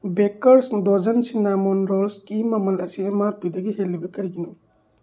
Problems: none marked